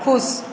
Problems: none marked